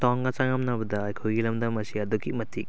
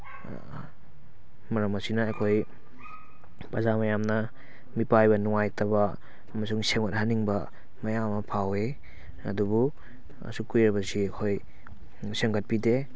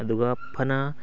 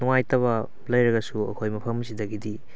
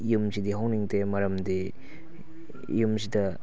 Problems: background sounds at intervals